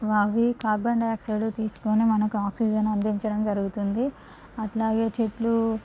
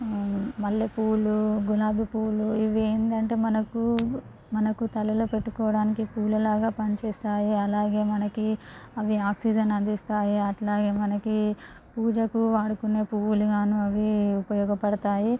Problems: constant background noise